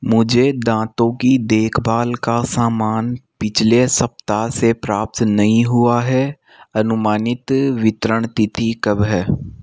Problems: none marked